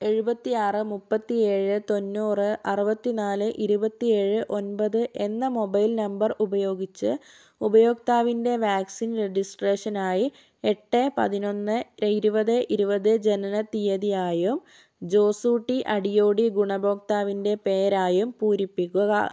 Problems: none marked